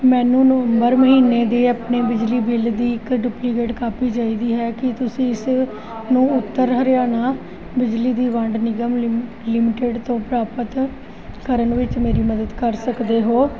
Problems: continuous background conversations